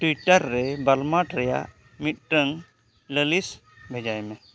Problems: constant background noise